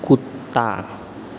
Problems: background sounds at intervals